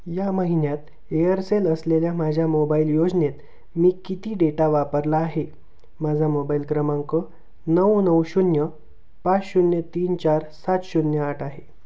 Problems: constant background noise